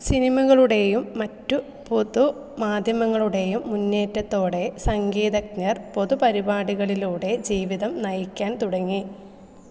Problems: none marked